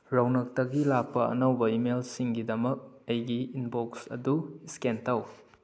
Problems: none marked